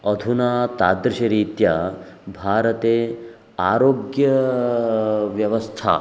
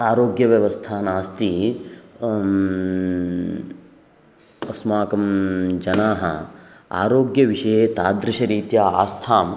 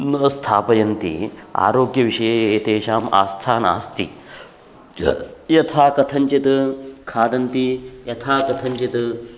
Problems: constant background noise